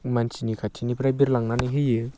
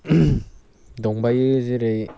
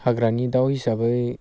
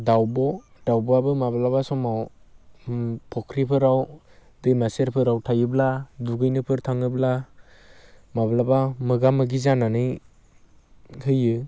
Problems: constant background noise